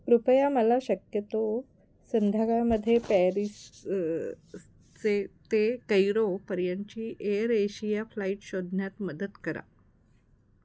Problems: background sounds at intervals